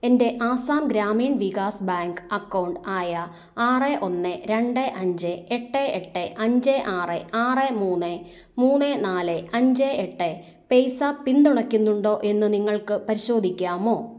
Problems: none marked